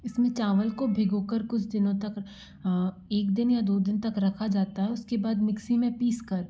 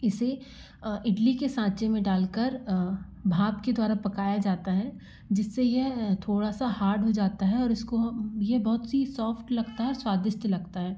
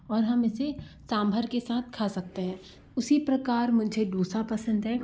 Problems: none marked